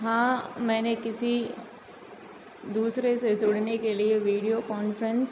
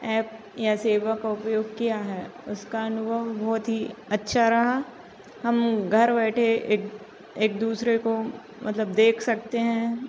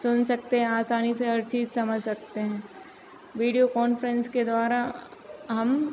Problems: none marked